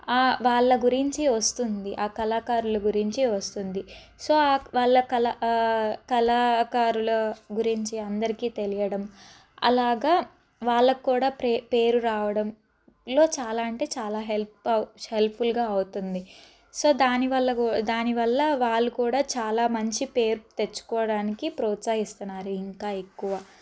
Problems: none marked